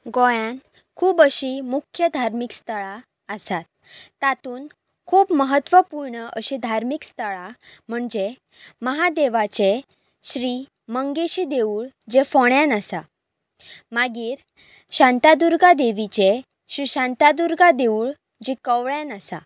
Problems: background sounds at intervals